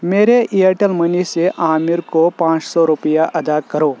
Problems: constant background noise